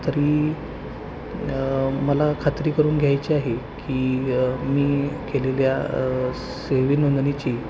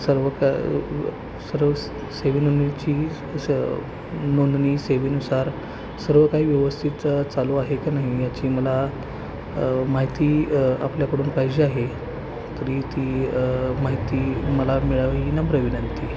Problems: constant background noise